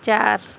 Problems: constant background noise